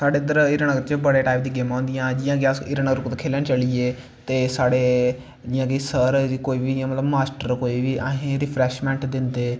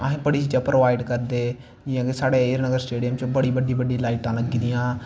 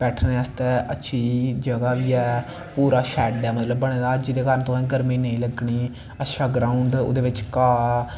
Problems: constant background noise